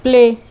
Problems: constant background noise